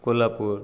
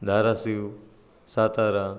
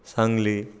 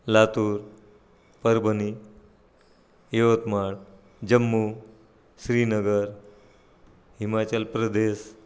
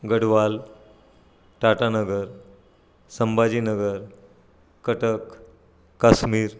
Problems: none marked